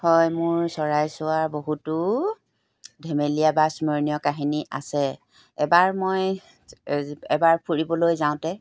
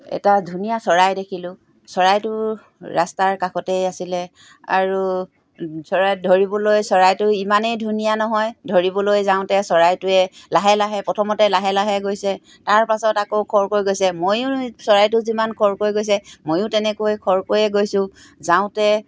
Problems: background sounds at intervals